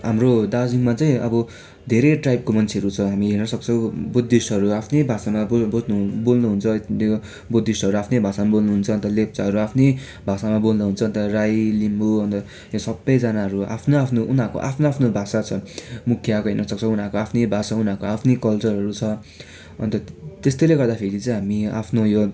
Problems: background sounds at intervals